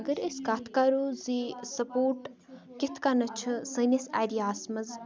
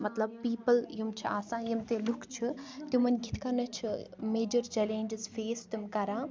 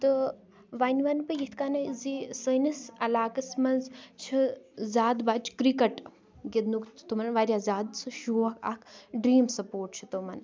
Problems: continuous background conversations